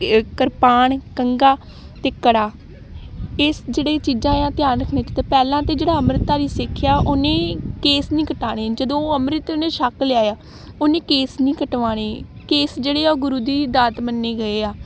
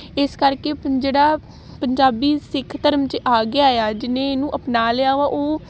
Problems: constant background noise